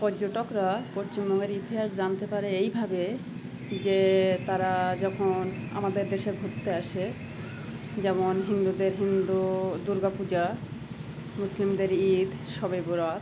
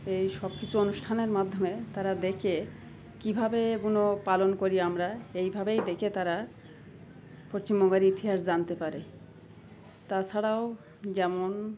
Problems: constant background noise, continuous background conversations